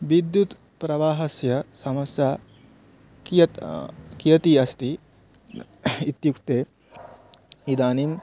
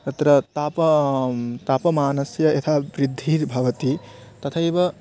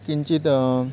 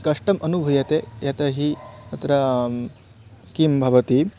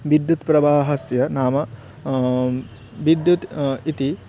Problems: constant background noise